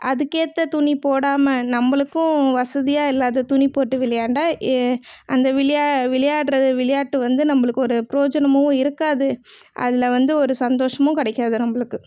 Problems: none marked